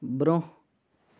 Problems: background sounds at intervals